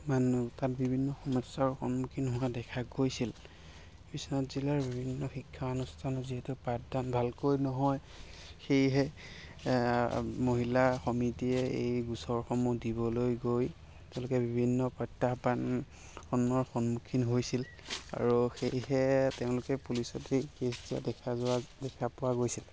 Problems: constant background noise, background conversations at intervals